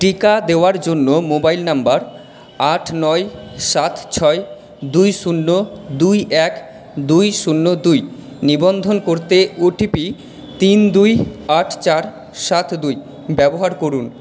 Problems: background sounds at intervals